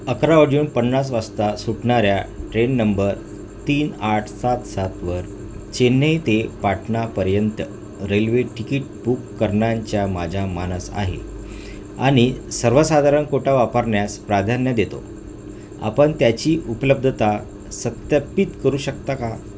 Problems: constant background noise